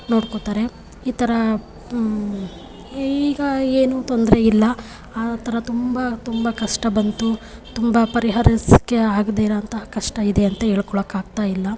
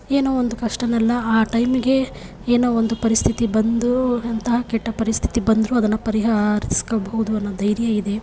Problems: background sounds at intervals